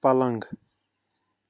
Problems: none marked